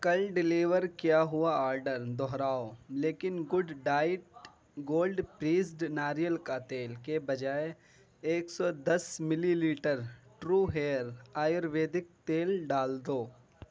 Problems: none marked